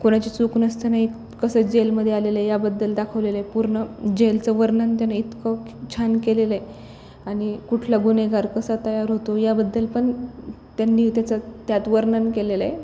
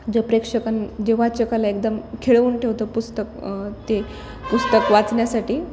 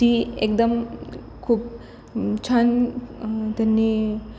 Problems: none marked